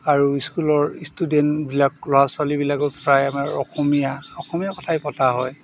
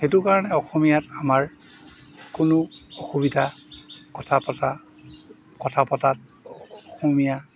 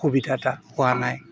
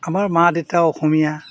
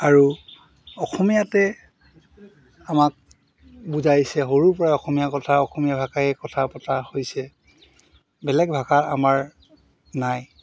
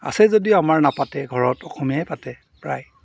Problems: background sounds at intervals